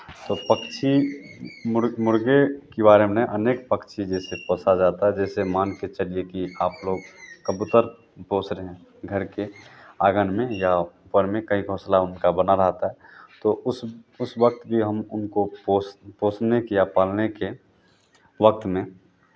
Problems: none marked